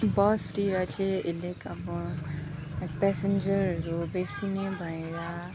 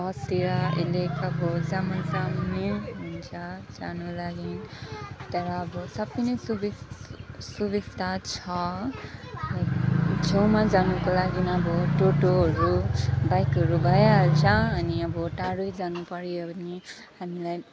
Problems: constant background noise, continuous background conversations, low volume